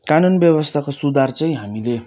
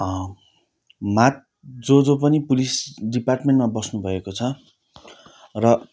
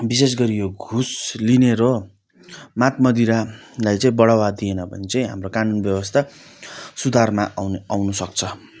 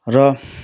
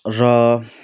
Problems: none marked